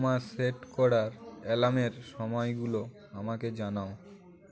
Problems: none marked